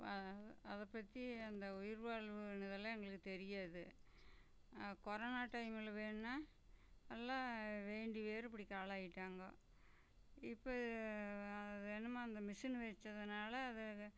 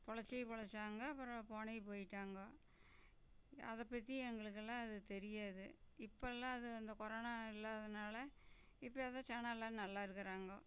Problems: low volume